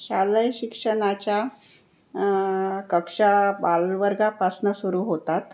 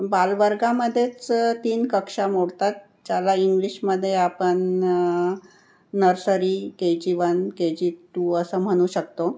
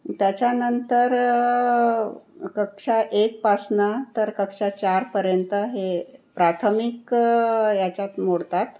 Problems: none marked